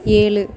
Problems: background conversations at intervals